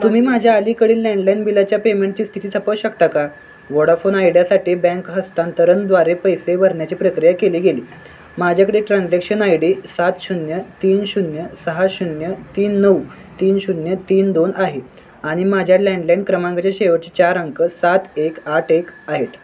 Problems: constant background noise, continuous background conversations